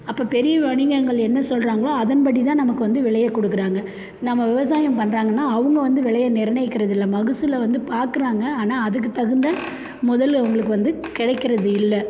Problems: none marked